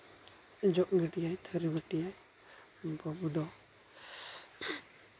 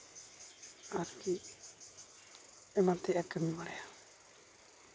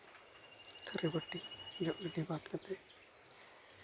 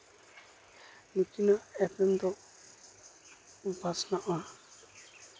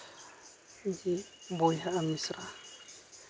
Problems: none marked